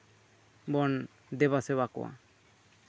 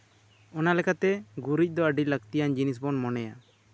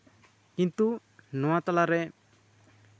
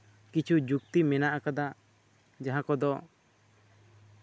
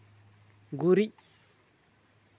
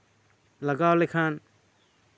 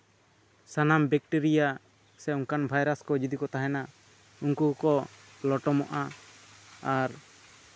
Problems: constant background noise